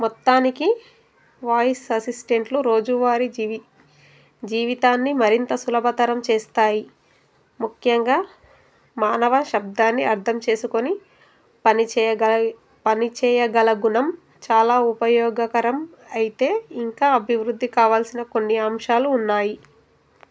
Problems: constant background noise